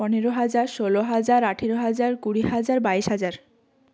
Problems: background sounds at intervals